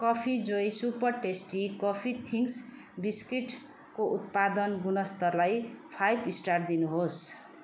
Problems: constant background noise